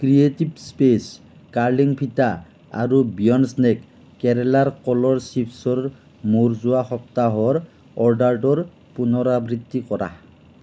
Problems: none marked